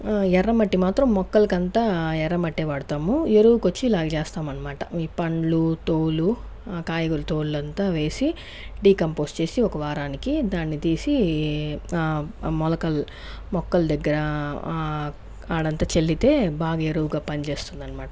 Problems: none marked